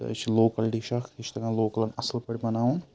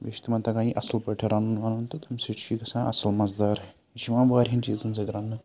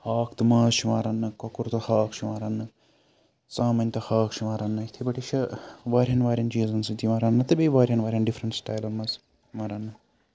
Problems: none marked